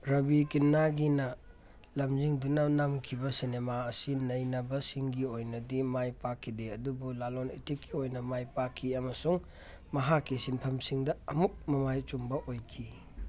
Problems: none marked